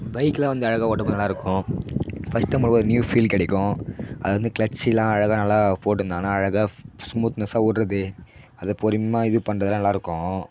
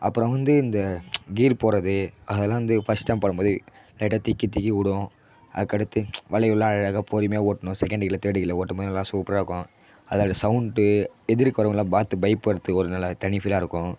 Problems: background sounds at intervals